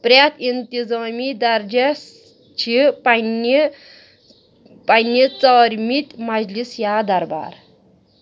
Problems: background sounds at intervals